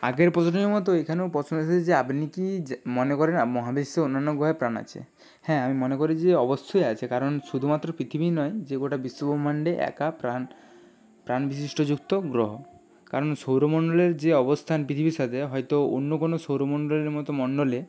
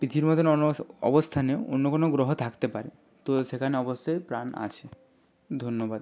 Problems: none marked